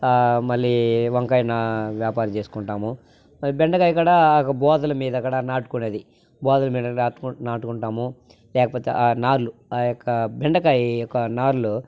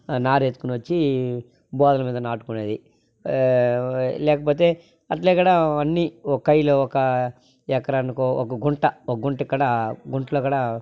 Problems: constant background noise